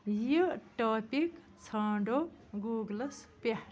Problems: none marked